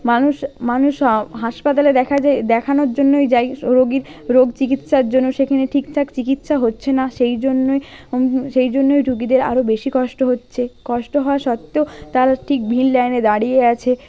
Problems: background sounds at intervals, background conversations at intervals